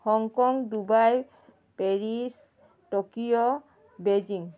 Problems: constant background noise